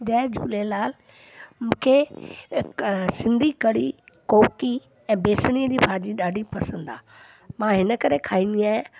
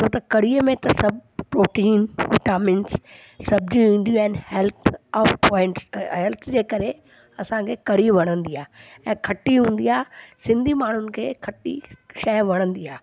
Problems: constant background noise